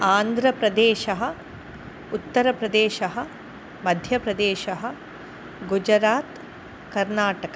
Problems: constant background noise